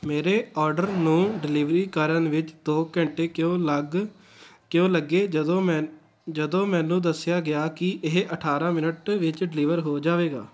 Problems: none marked